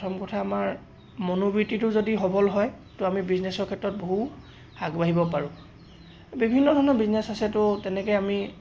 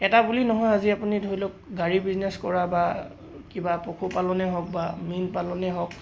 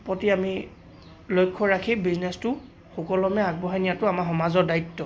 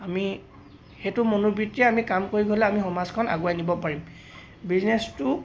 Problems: none marked